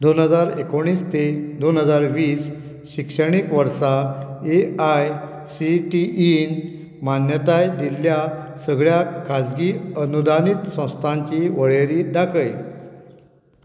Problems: background sounds at intervals